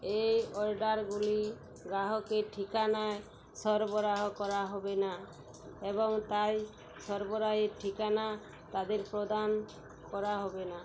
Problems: constant background noise